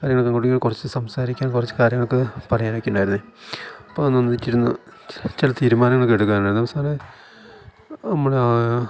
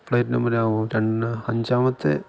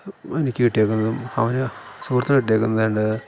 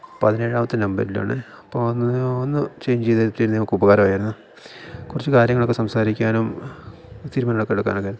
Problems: background sounds at intervals